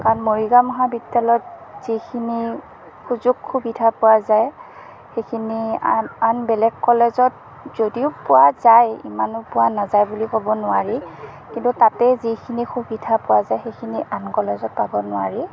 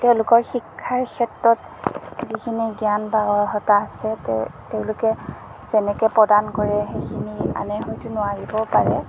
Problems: constant background noise